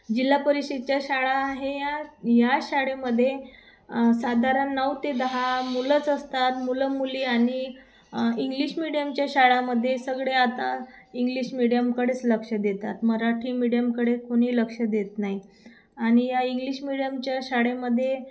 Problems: constant background noise, background conversations at intervals